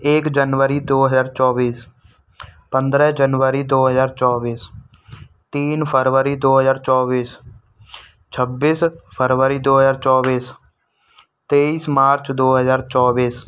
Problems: background sounds at intervals